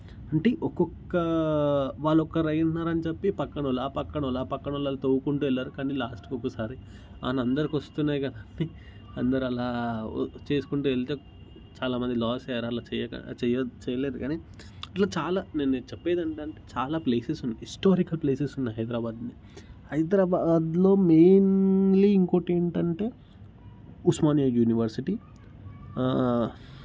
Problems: background sounds at intervals